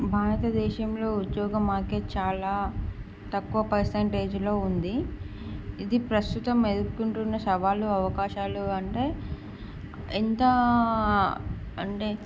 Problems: none marked